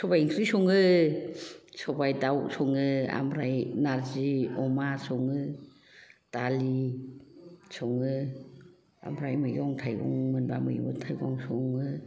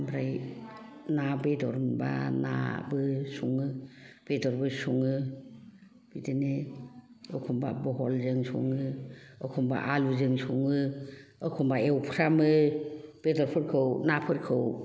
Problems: background conversations at intervals